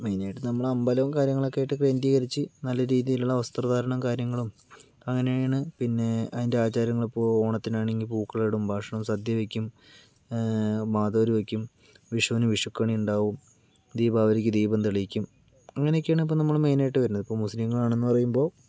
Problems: low volume